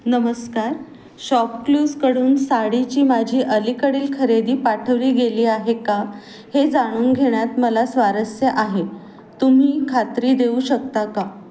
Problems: none marked